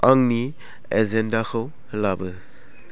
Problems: constant background noise